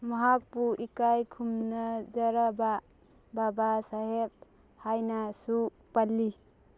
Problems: none marked